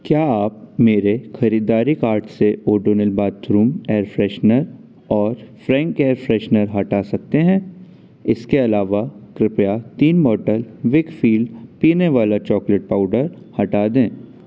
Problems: constant background noise